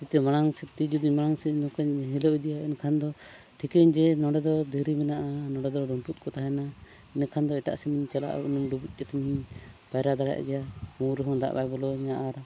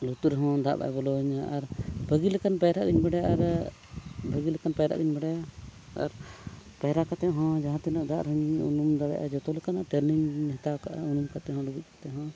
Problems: none marked